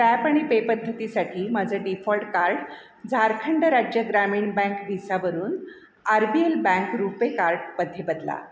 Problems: none marked